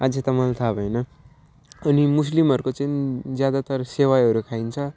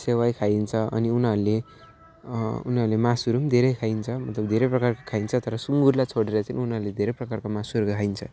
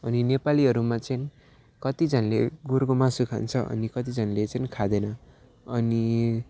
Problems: none marked